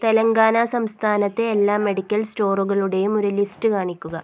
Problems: none marked